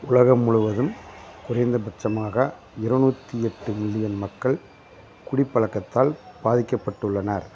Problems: constant background noise